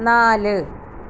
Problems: constant background noise